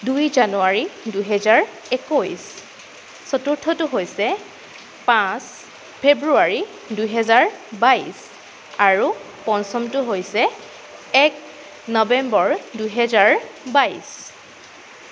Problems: none marked